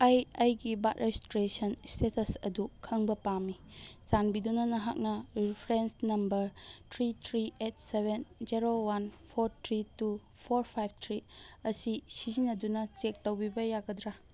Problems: none marked